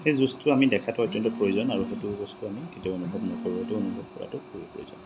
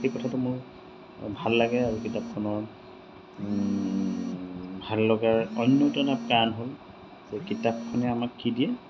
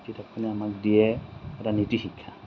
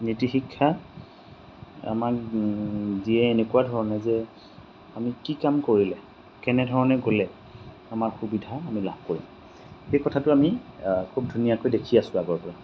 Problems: none marked